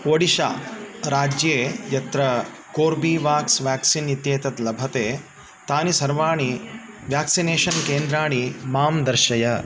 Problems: constant background noise